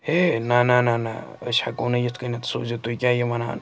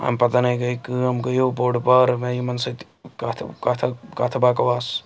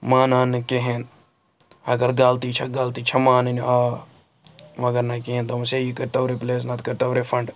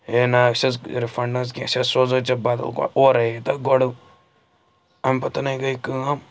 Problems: background sounds at intervals